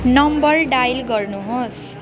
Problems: background sounds at intervals